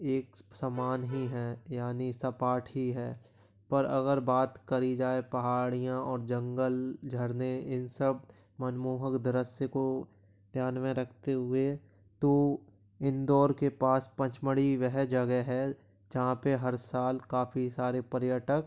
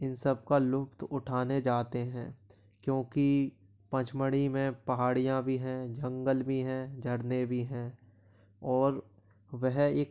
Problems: background sounds at intervals